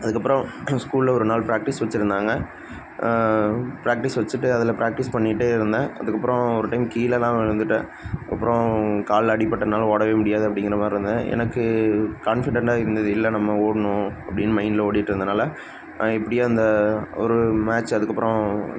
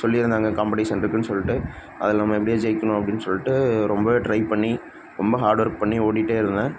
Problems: constant background noise